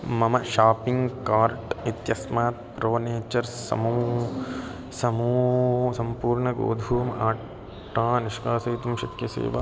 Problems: background sounds at intervals